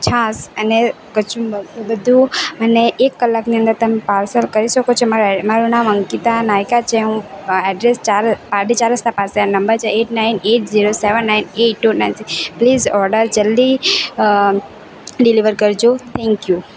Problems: none marked